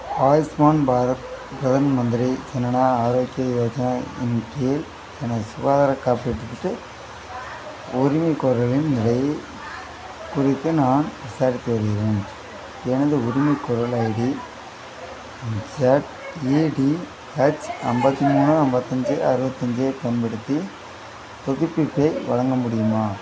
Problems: constant background noise, continuous background conversations